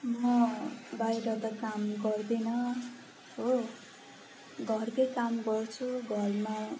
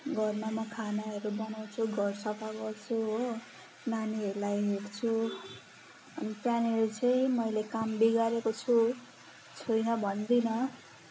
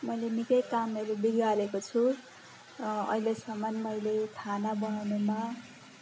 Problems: background sounds at intervals